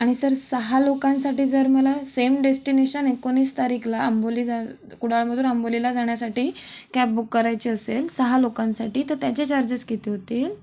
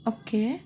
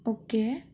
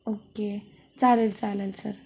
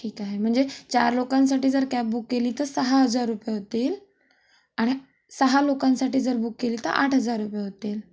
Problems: constant background noise, background conversations at intervals